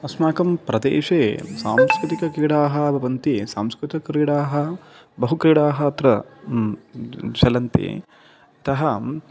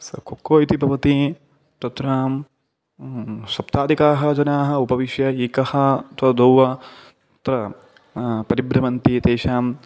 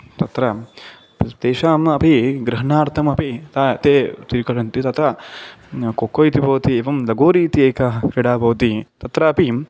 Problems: background sounds at intervals